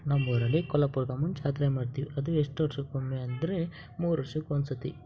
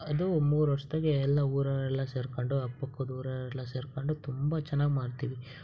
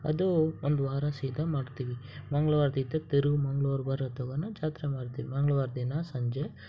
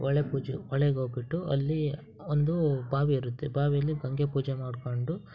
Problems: background sounds at intervals